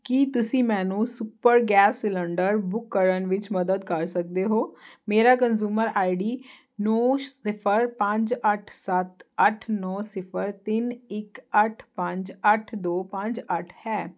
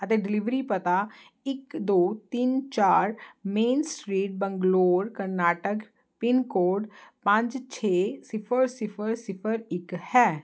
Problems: constant background noise